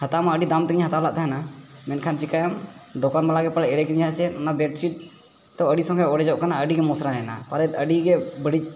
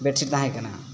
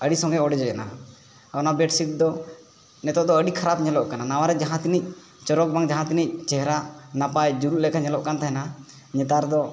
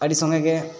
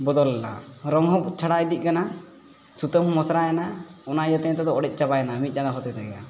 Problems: none marked